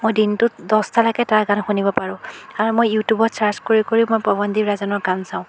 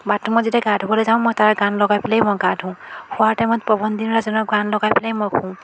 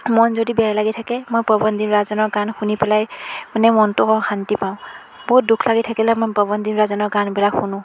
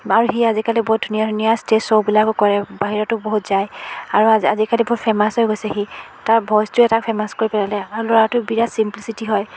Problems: constant background noise, background conversations at intervals